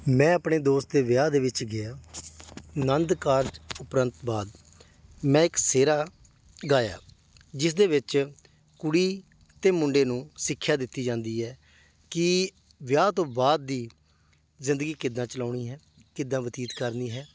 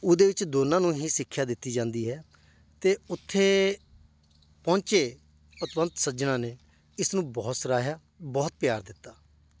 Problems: none marked